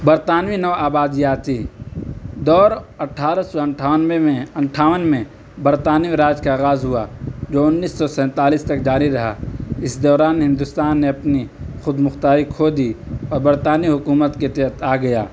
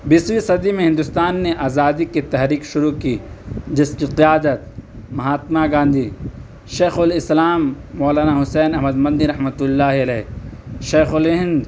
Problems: background sounds at intervals